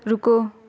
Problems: constant background noise